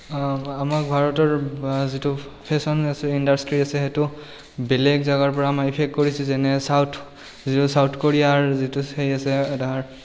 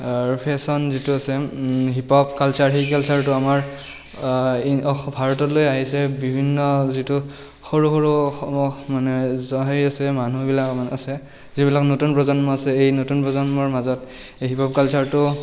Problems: background sounds at intervals